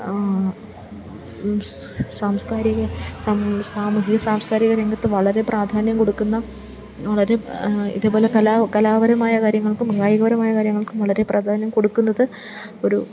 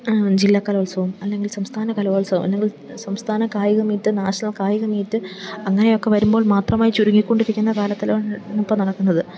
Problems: background sounds at intervals, low volume